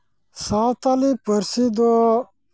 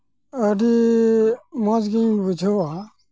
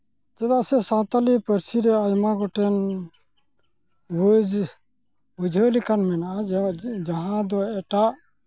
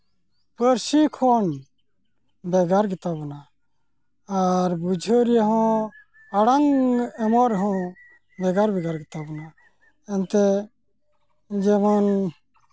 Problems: constant background noise